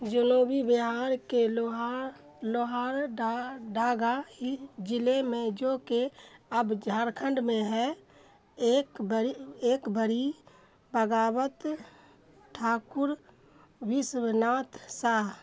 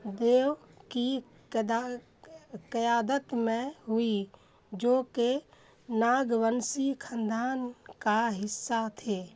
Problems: none marked